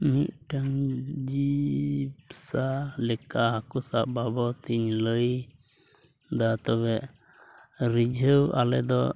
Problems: background sounds at intervals